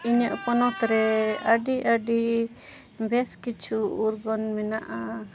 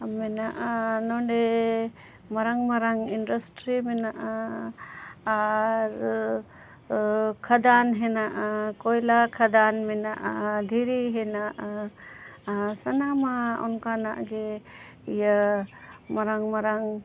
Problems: background sounds at intervals